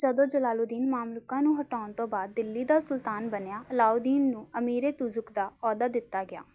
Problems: background sounds at intervals